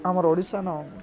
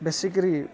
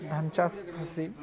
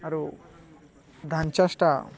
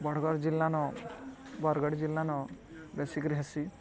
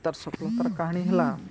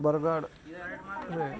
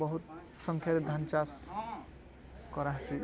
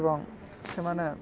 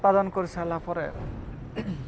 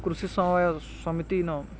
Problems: constant background noise, continuous background conversations